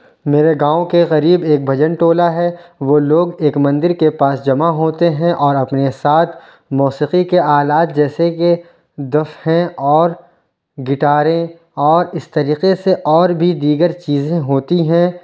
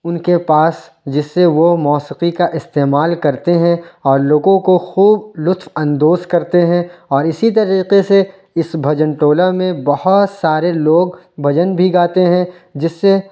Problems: background sounds at intervals